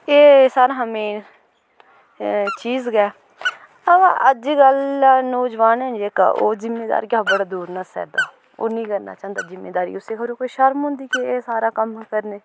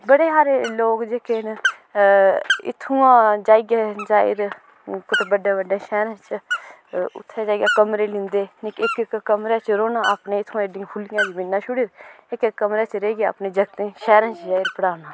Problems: background sounds at intervals